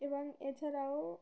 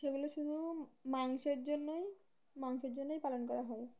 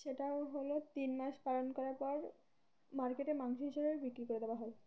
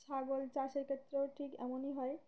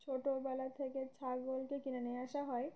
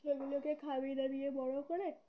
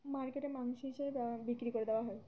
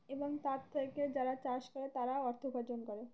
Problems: none marked